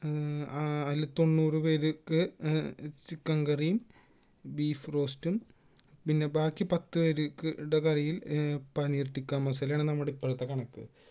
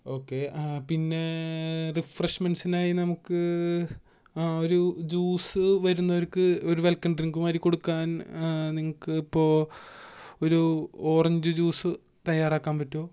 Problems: none marked